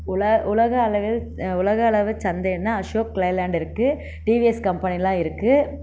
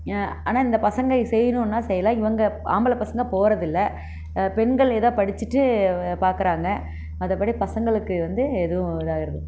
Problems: constant background noise